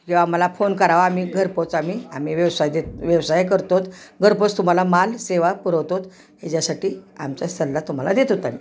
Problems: background sounds at intervals